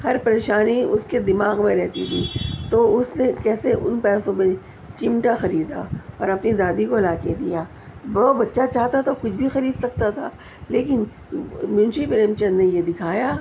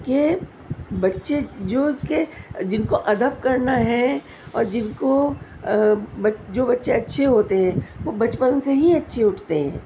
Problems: none marked